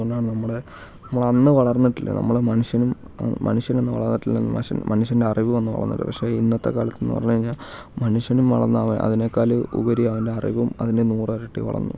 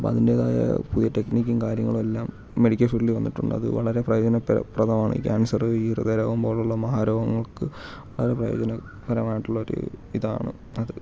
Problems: constant background noise, low volume